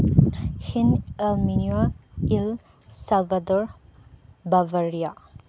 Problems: background sounds at intervals